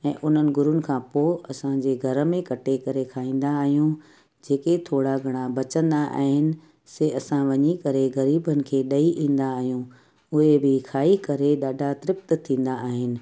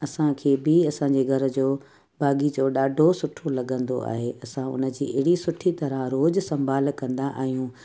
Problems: constant background noise, echo